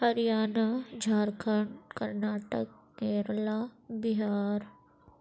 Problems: none marked